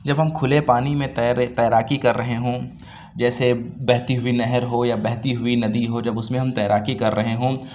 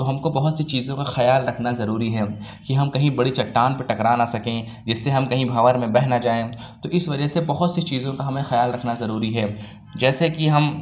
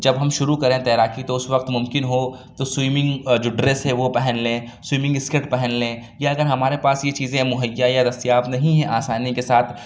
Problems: none marked